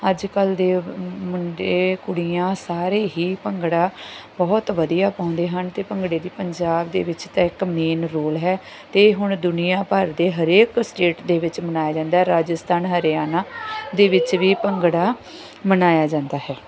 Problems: none marked